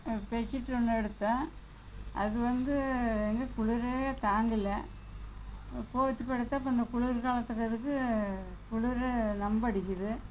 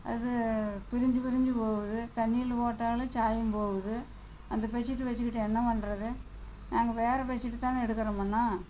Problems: constant background noise